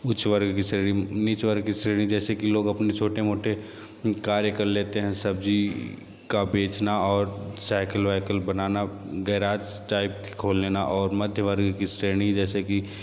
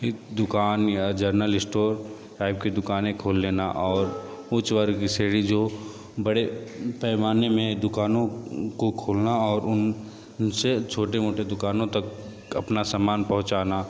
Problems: constant background noise